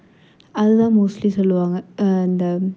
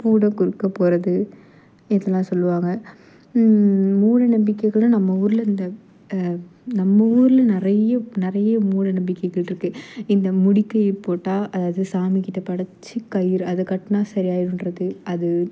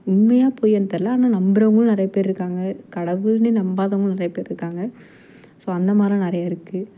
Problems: none marked